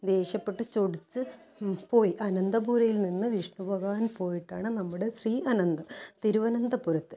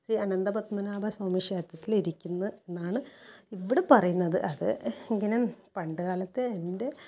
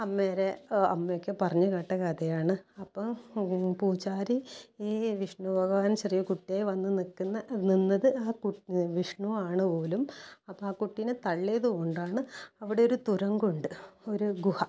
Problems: low volume